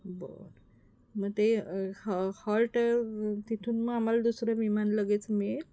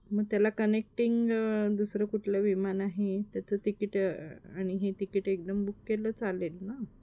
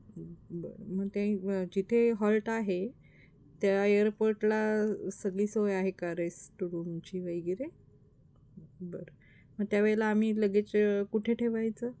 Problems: none marked